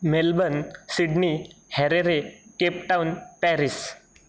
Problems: constant background noise